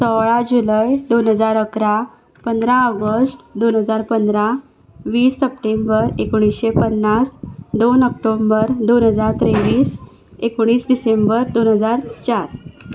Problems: background sounds at intervals